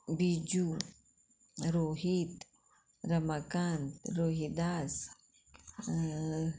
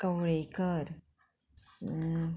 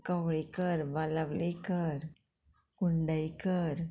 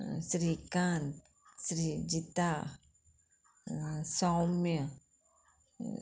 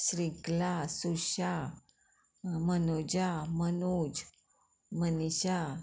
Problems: background sounds at intervals